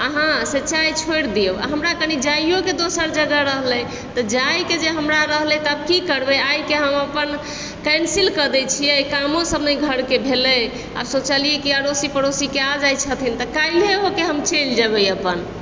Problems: constant background noise